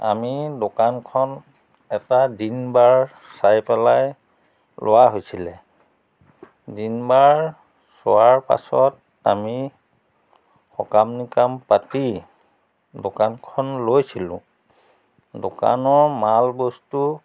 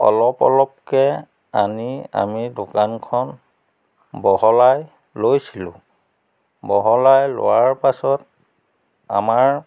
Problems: background sounds at intervals